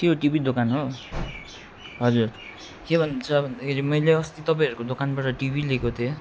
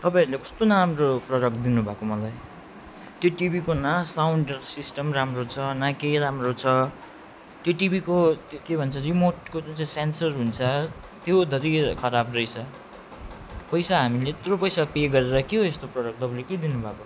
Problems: none marked